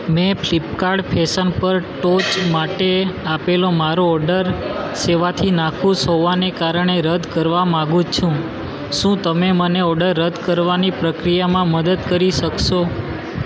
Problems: constant background noise